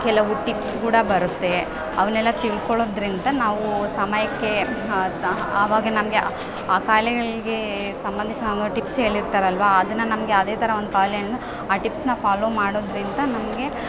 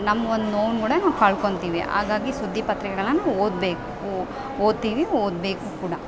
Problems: background sounds at intervals